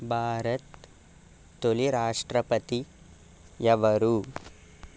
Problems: constant background noise